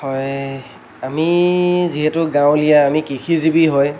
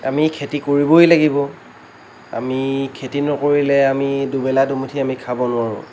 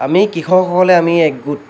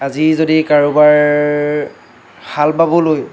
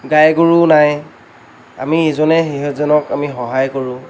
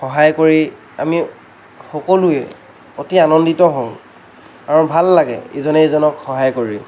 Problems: none marked